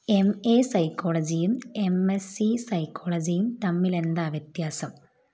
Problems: none marked